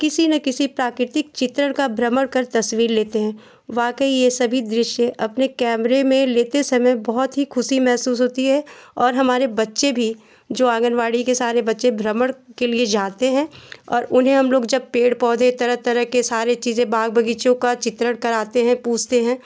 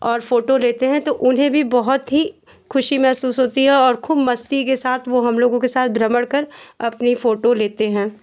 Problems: none marked